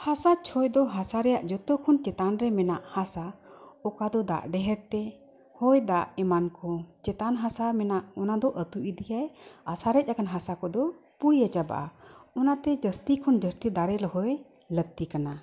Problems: none marked